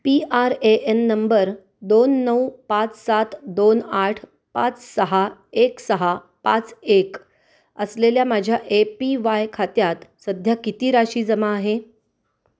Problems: constant background noise